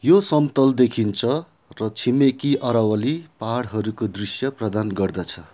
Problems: background sounds at intervals